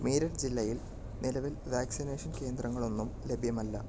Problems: low volume